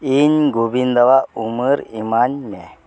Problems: constant background noise